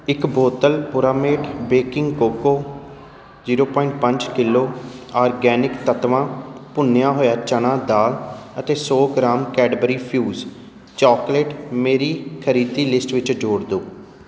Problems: constant background noise